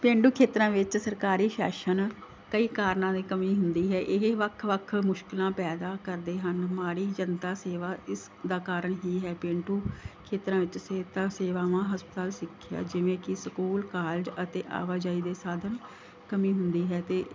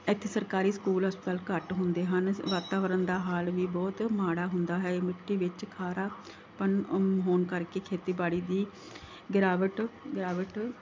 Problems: background sounds at intervals